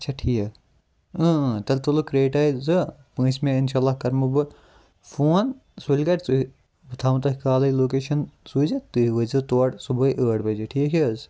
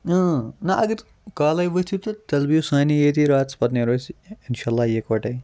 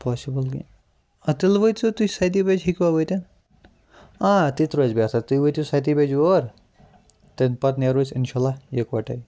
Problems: none marked